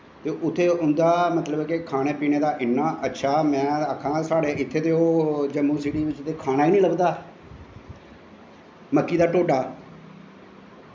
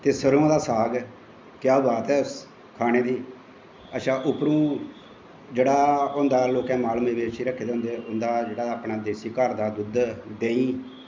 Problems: constant background noise, echo, low volume